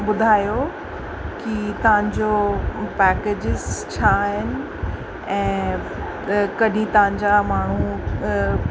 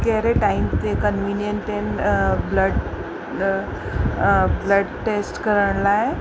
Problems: constant background noise, echo